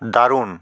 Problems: none marked